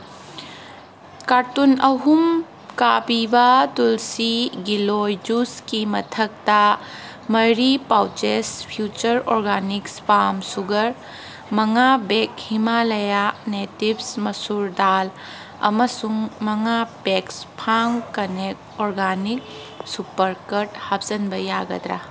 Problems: background sounds at intervals